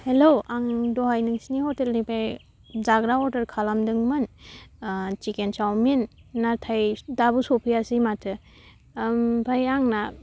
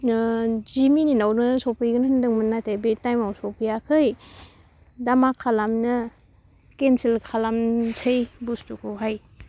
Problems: none marked